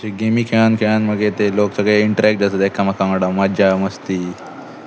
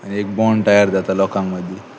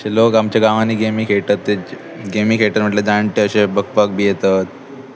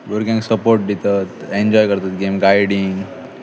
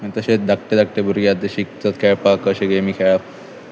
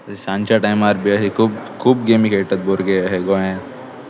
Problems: constant background noise, continuous background conversations